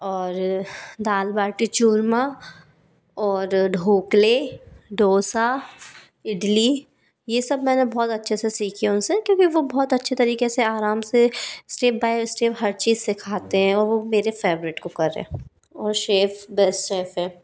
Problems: background sounds at intervals